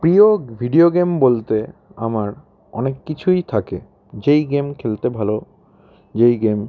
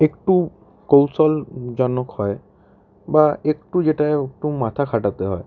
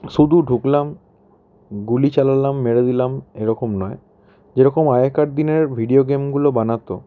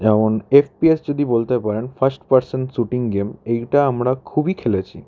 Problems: background sounds at intervals